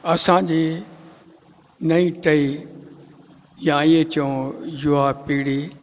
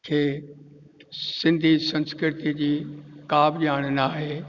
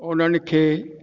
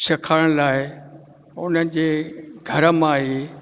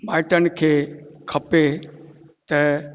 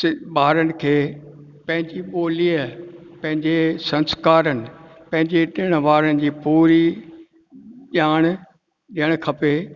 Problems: constant background noise, echo